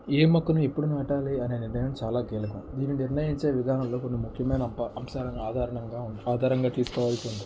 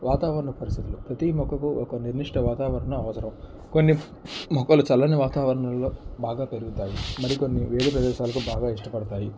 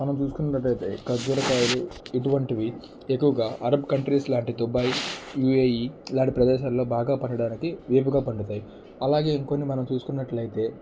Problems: low volume